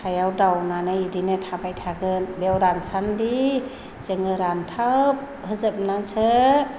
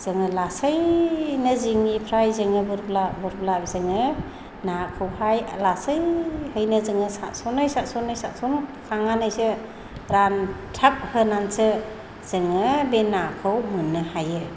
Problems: low volume